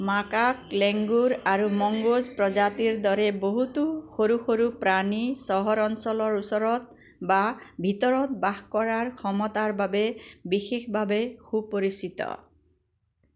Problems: constant background noise